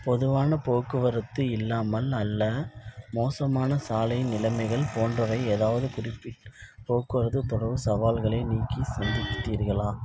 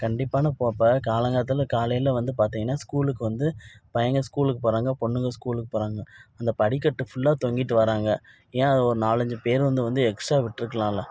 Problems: none marked